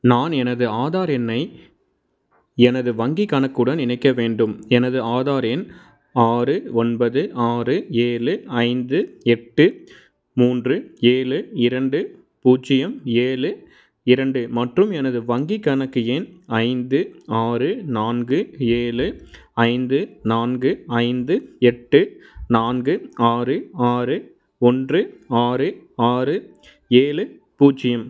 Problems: none marked